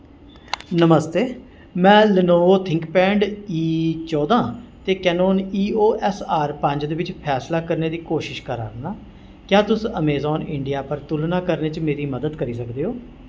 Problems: constant background noise, echo